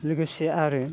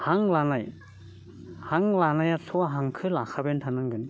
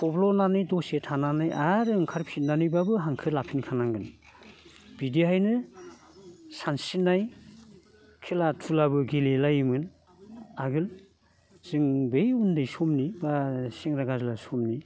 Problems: none marked